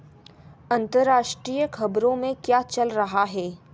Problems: background sounds at intervals